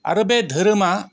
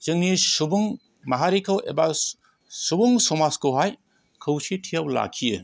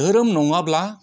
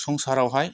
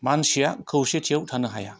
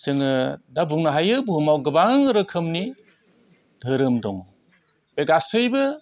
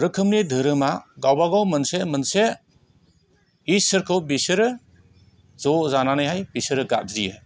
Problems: none marked